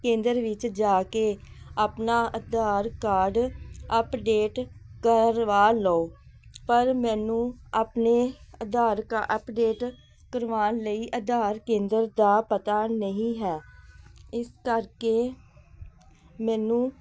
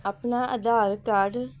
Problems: none marked